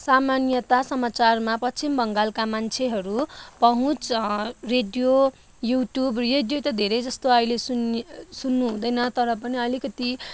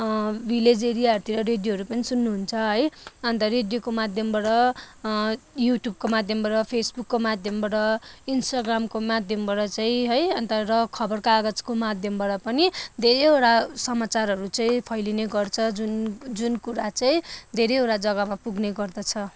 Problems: none marked